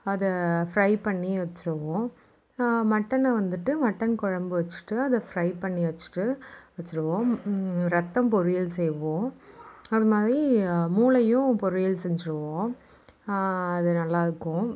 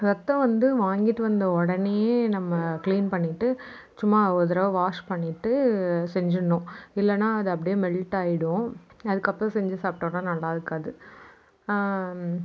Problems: background sounds at intervals, background conversations at intervals